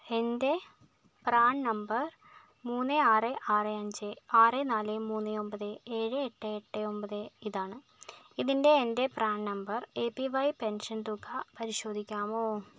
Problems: low volume